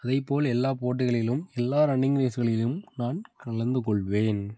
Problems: background sounds at intervals